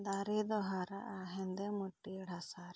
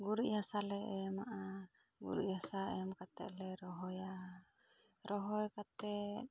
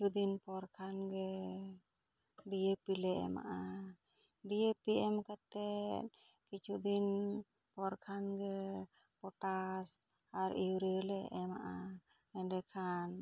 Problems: low volume